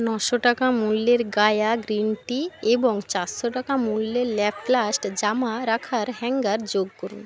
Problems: constant background noise